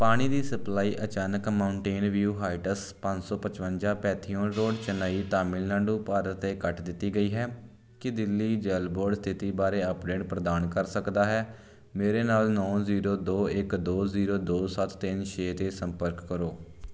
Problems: background sounds at intervals